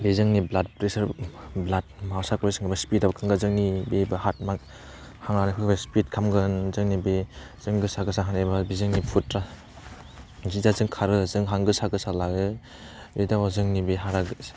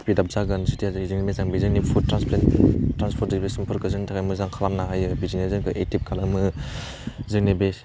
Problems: low volume